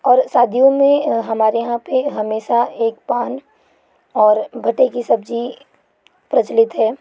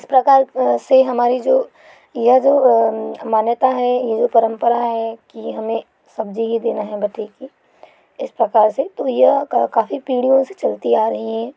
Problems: none marked